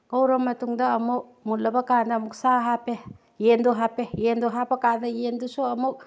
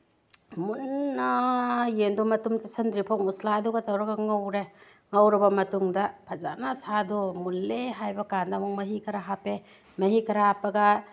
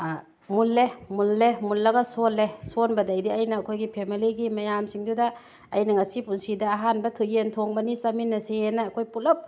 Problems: background conversations at intervals